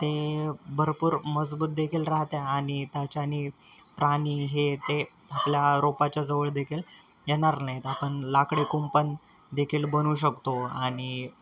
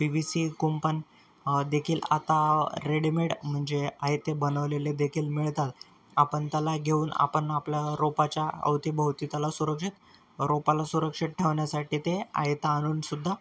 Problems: none marked